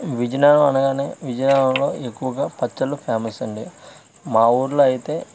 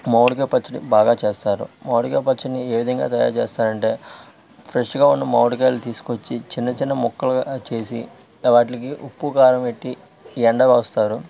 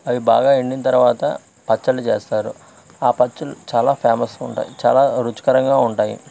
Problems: constant background noise